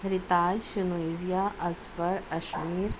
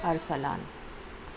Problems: none marked